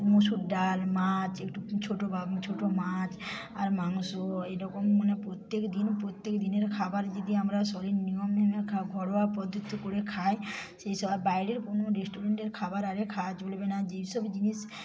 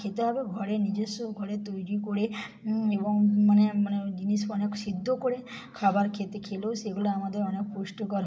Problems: background sounds at intervals, background conversations at intervals